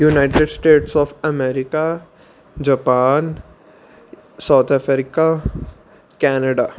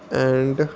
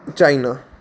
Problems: constant background noise